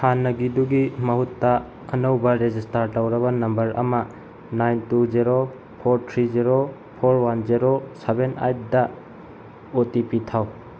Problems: none marked